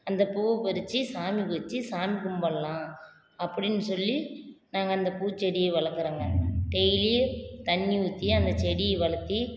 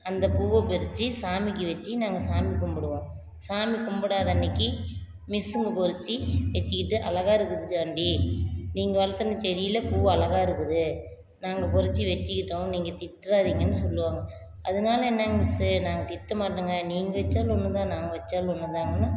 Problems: constant background noise